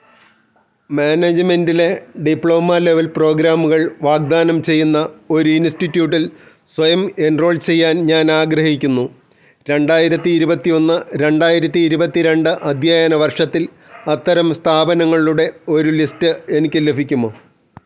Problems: none marked